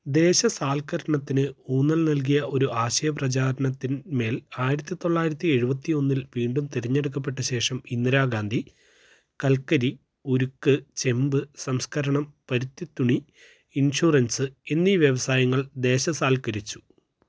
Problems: none marked